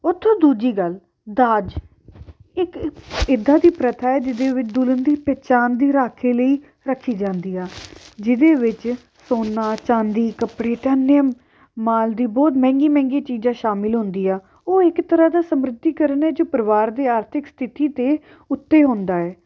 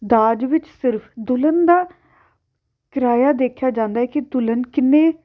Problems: background sounds at intervals